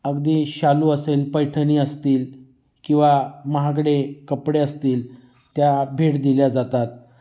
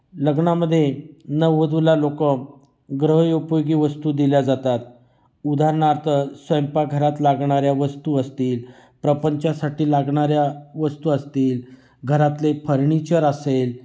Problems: constant background noise, echo